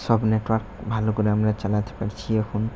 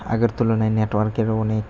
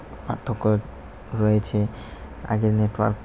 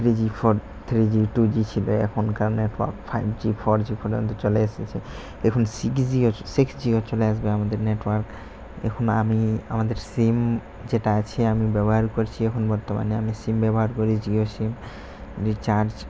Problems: constant background noise